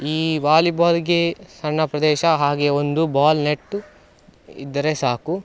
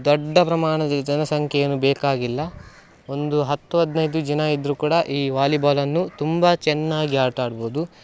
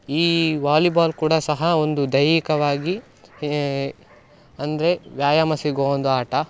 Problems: background sounds at intervals